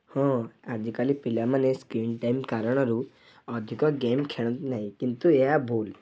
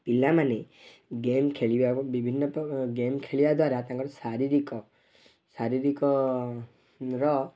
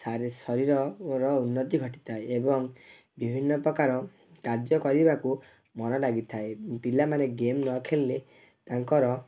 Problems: none marked